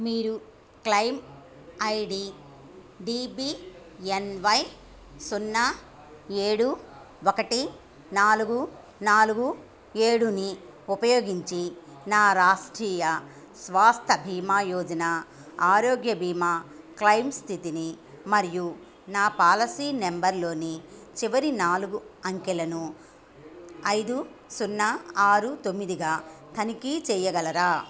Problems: background sounds at intervals